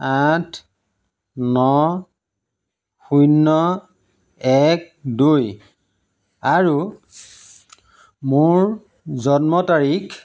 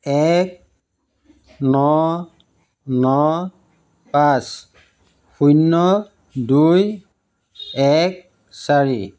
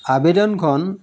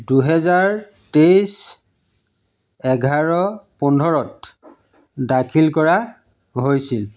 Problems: low volume